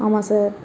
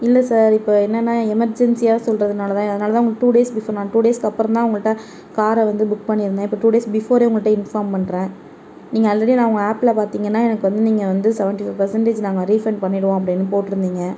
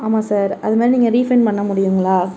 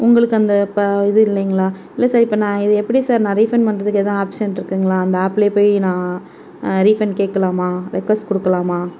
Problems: background sounds at intervals